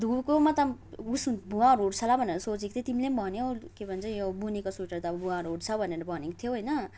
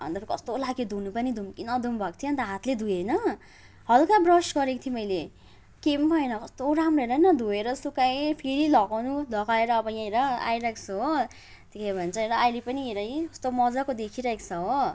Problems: background sounds at intervals, background conversations at intervals